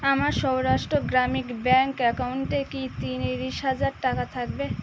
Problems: constant background noise